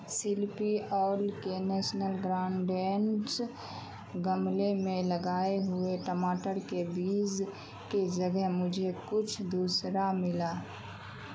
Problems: none marked